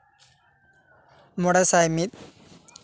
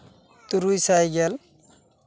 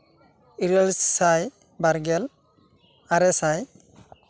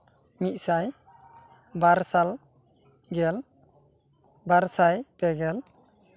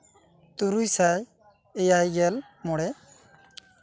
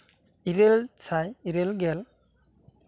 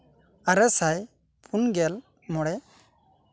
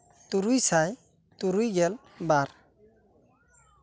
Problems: none marked